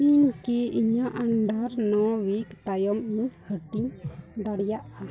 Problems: continuous background conversations